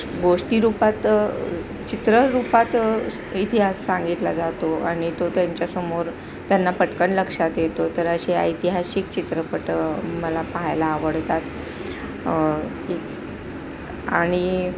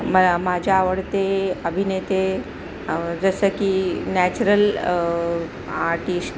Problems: constant background noise